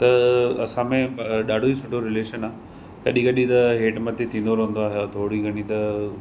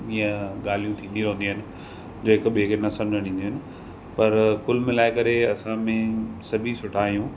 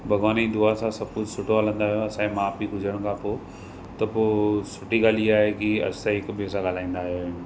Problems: constant background noise